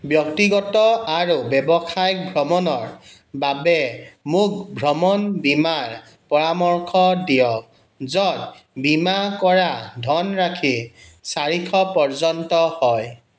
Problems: none marked